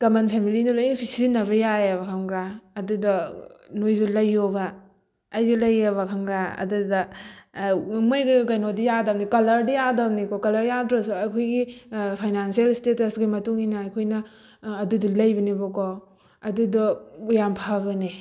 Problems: background sounds at intervals